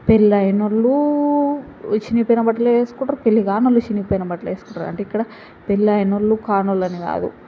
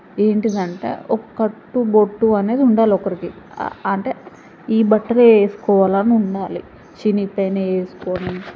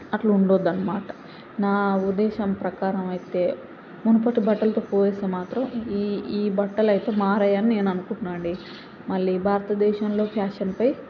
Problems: background sounds at intervals, background conversations at intervals